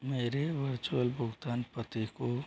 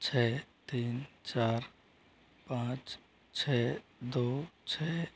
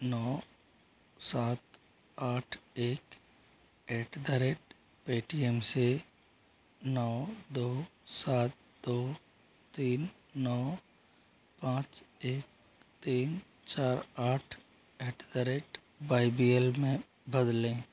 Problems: constant background noise